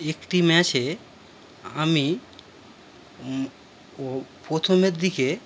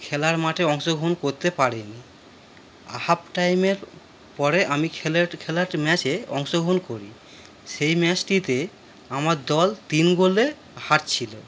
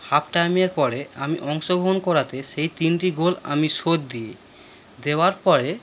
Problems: constant background noise